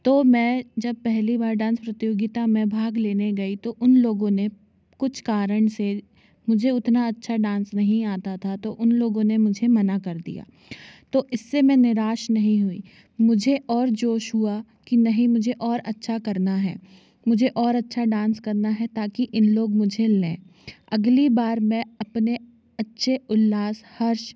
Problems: none marked